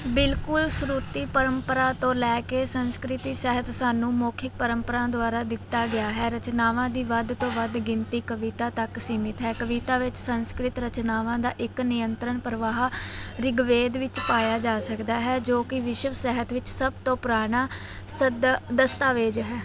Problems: background sounds at intervals, background conversations at intervals